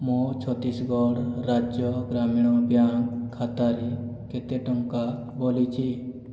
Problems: none marked